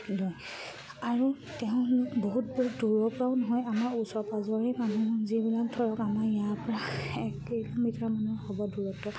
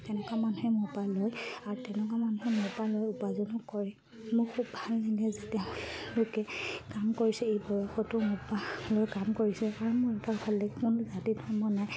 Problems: low volume